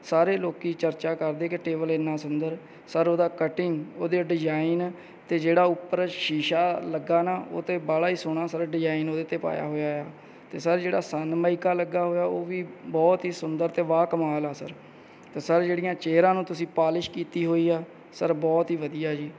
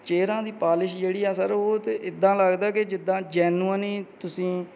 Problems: background sounds at intervals